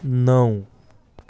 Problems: none marked